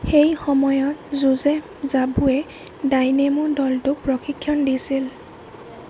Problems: constant background noise